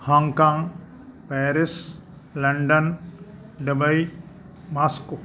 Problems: none marked